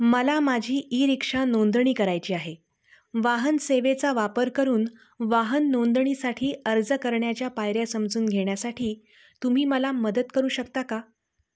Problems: background sounds at intervals